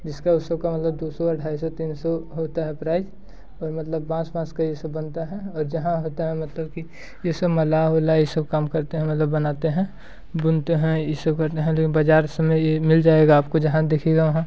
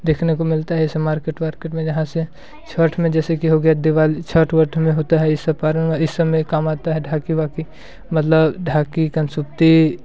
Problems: background sounds at intervals